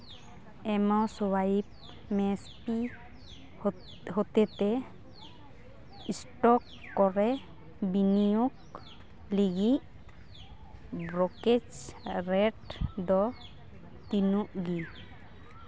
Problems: background sounds at intervals